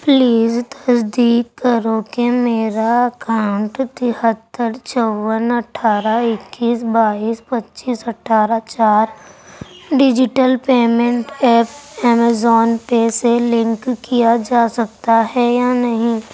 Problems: constant background noise